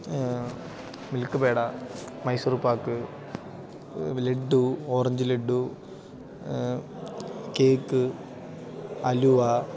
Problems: none marked